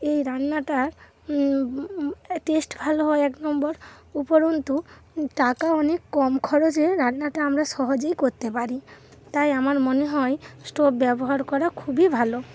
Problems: none marked